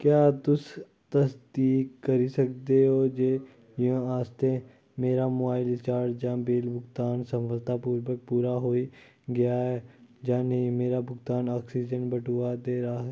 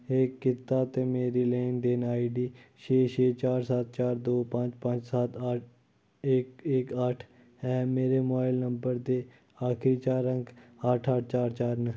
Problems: none marked